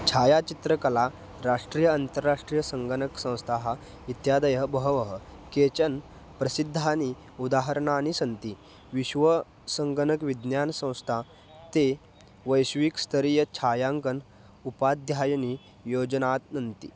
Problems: background sounds at intervals